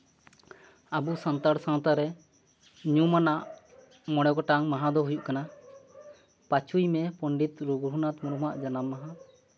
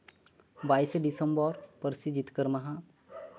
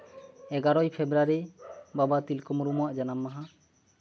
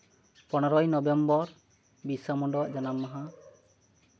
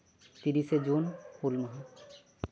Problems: background sounds at intervals